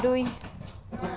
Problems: constant background noise, background conversations at intervals